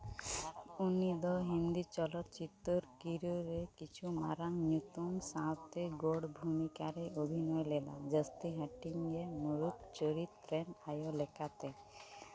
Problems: background conversations at intervals